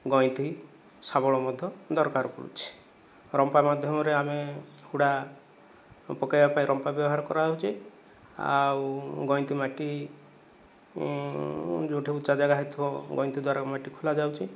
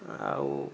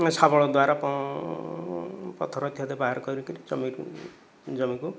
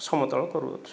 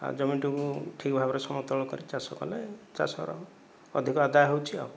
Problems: none marked